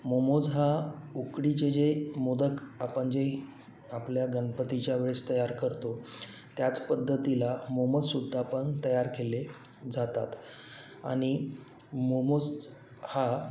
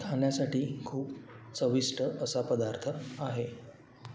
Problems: constant background noise